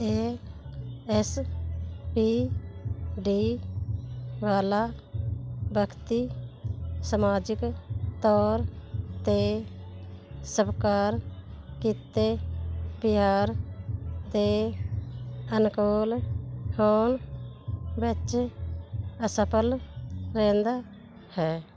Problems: none marked